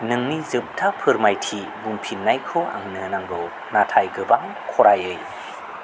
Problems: constant background noise